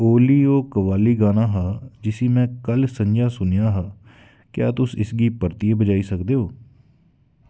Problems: none marked